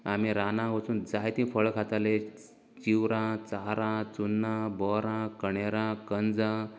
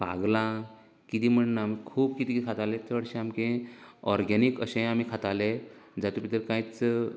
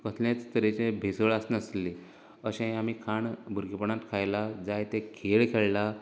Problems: none marked